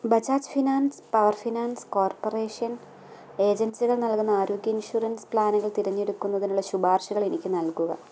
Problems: low volume